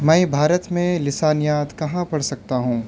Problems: none marked